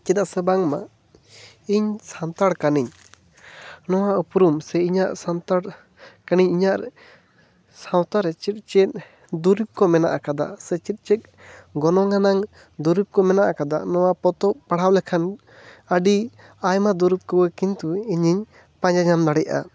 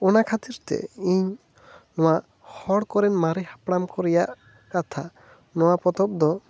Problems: none marked